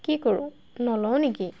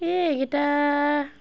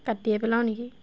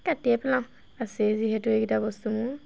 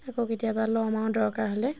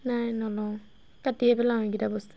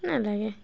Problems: constant background noise